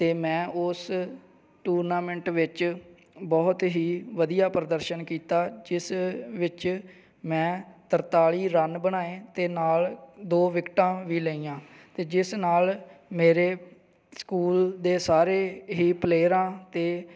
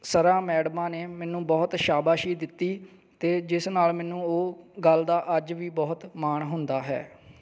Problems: background sounds at intervals